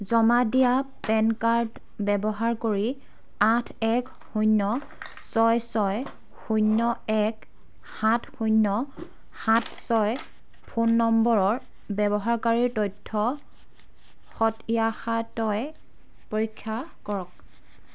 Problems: constant background noise